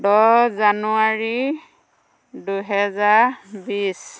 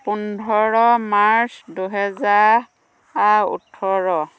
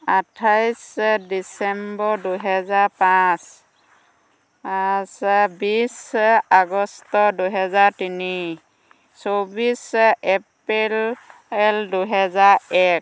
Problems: constant background noise